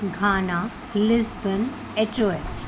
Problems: constant background noise